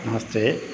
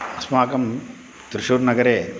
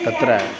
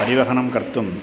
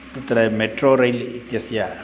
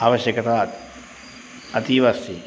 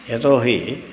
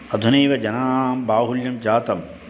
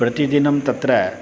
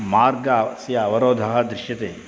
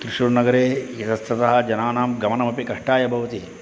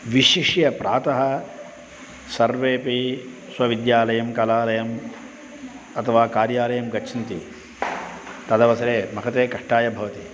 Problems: constant background noise